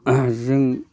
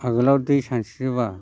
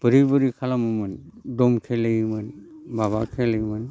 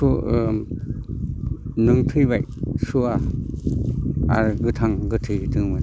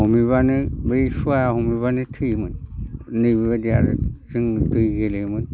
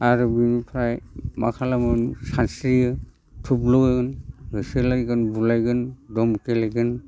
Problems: constant background noise